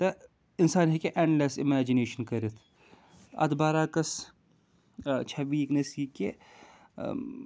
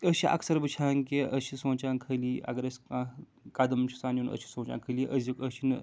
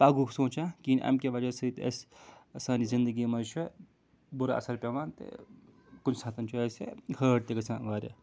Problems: background sounds at intervals